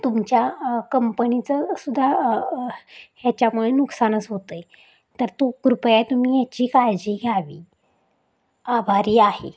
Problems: constant background noise, background conversations at intervals